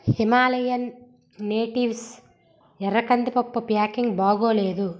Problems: none marked